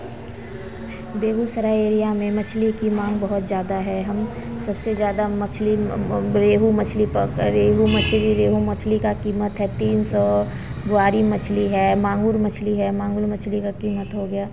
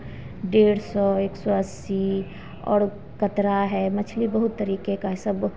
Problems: constant background noise